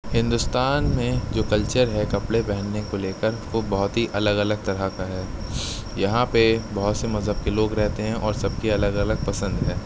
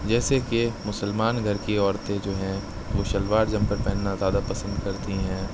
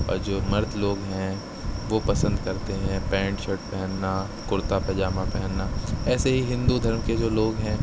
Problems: constant background noise